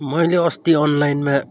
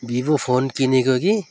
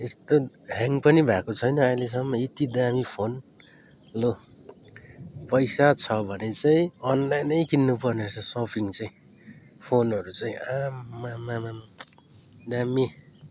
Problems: background sounds at intervals